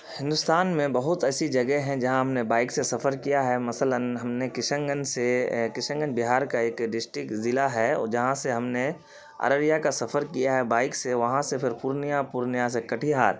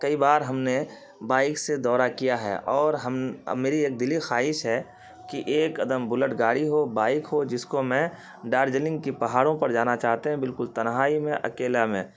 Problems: constant background noise